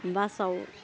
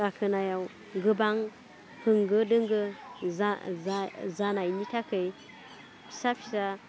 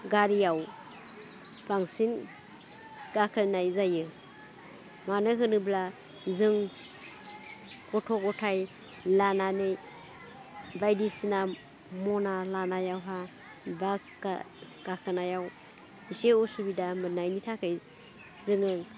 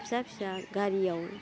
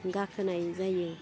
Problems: low volume